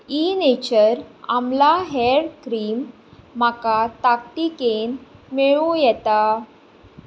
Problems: none marked